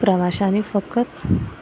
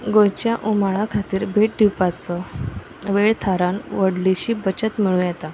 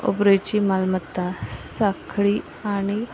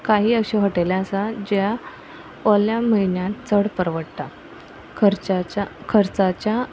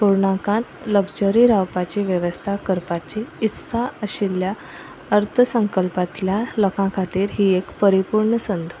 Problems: background sounds at intervals